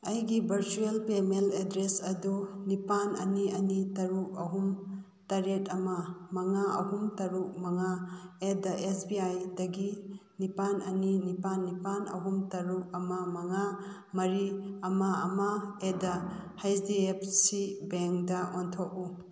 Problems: background sounds at intervals